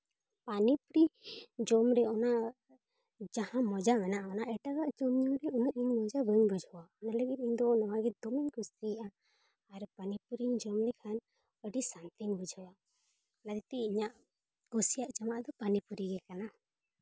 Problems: none marked